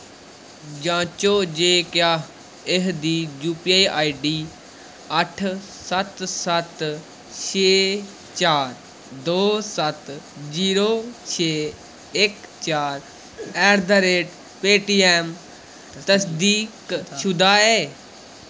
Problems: background sounds at intervals